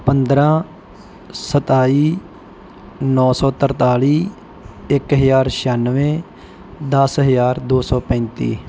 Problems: background sounds at intervals